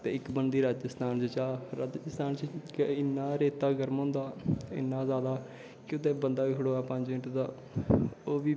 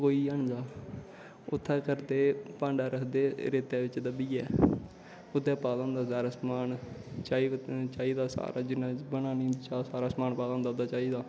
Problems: constant background noise, background conversations at intervals